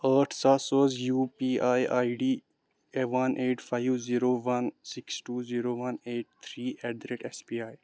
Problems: background sounds at intervals